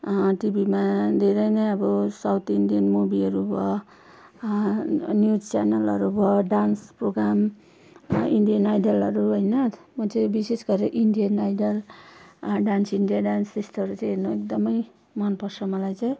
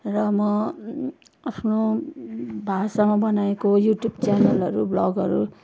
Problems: constant background noise